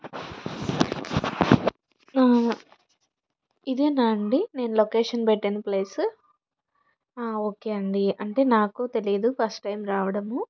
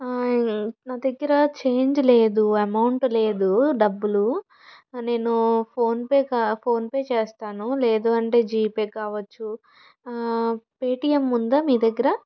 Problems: background conversations at intervals